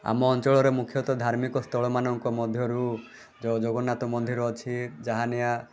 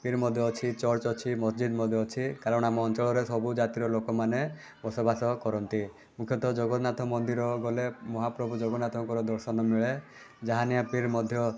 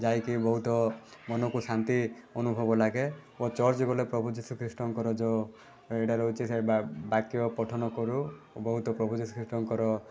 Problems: background sounds at intervals